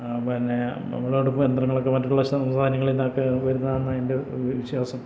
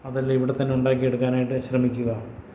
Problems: none marked